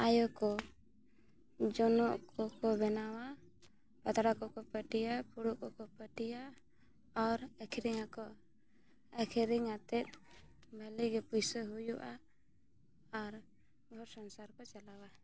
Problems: none marked